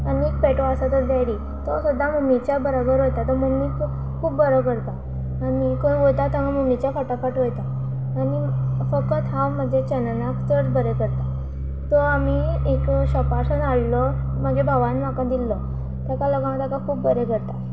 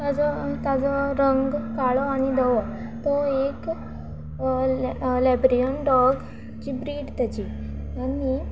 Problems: constant background noise